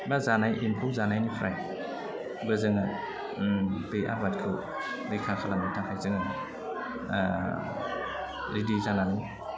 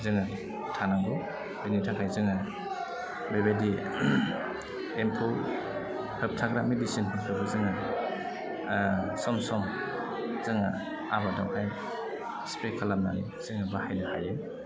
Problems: low volume